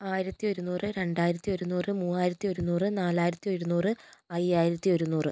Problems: none marked